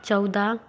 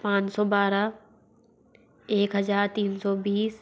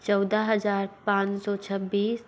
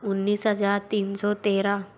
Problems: constant background noise